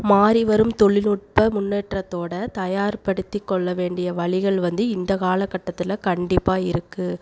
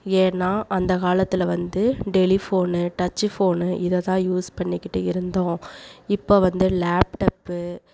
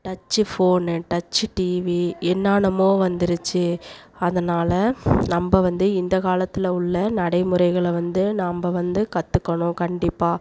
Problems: none marked